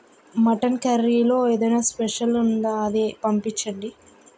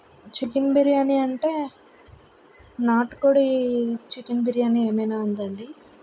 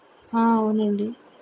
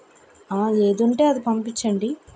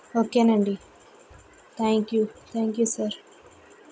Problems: background sounds at intervals